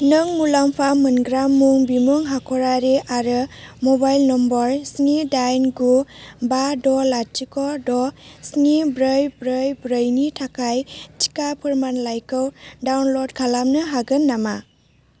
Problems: low volume